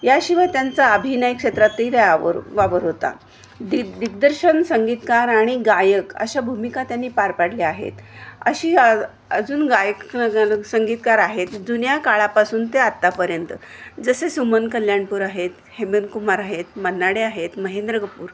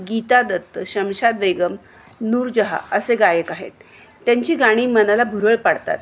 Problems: none marked